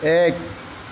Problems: none marked